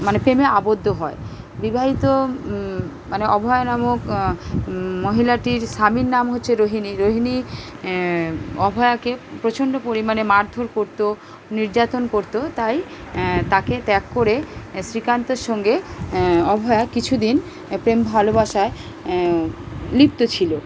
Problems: none marked